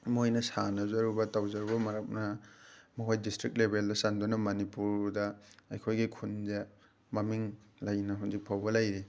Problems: background sounds at intervals